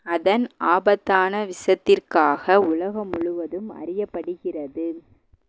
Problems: none marked